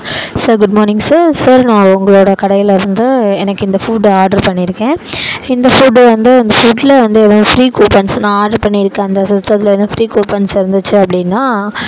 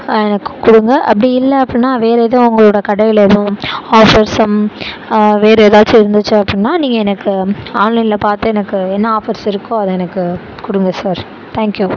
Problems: constant background noise, background conversations at intervals